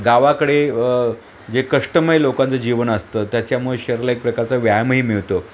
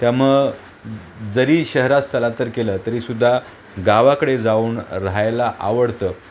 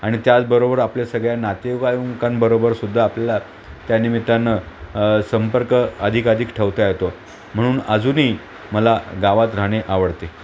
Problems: constant background noise